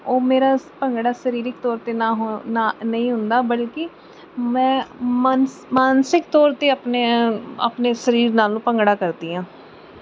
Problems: background sounds at intervals